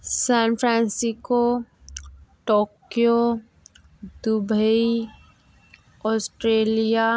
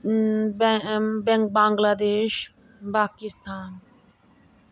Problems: constant background noise